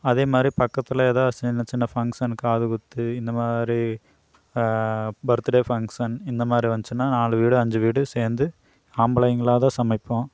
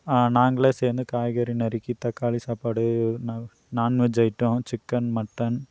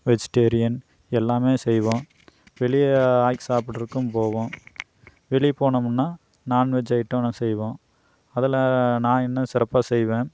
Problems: none marked